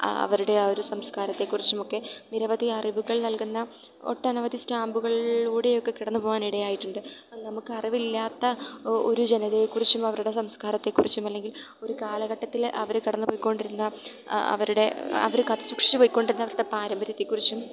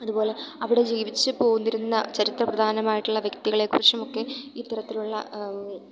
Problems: background sounds at intervals